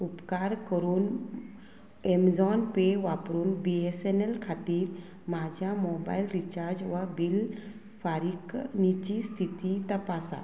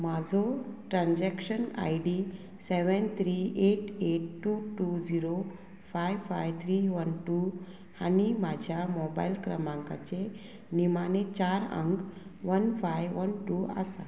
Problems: constant background noise